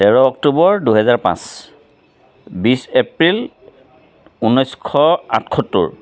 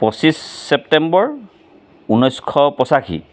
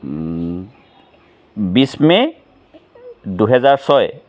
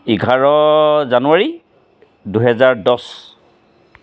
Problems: background sounds at intervals